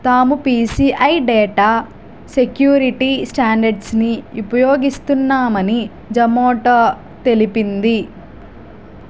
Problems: constant background noise